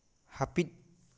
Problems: none marked